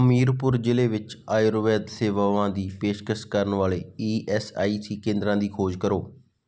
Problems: background sounds at intervals